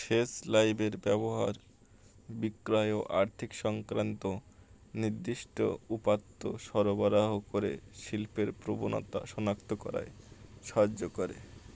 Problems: constant background noise